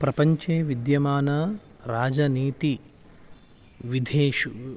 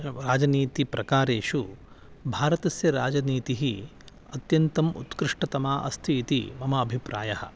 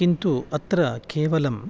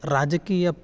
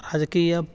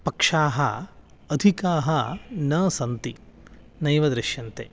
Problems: none marked